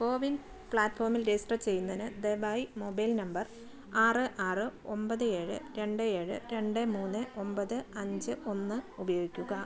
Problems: none marked